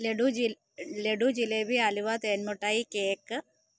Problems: low volume